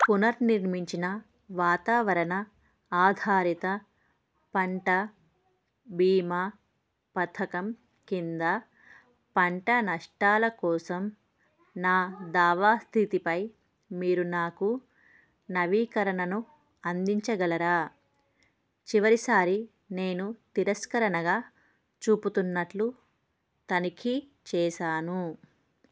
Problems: none marked